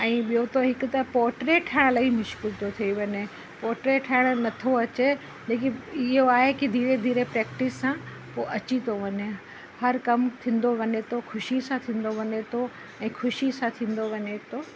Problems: constant background noise